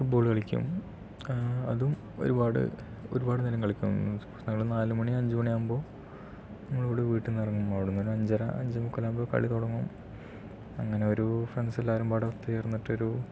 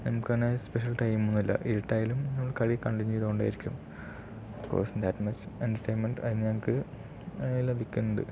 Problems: low volume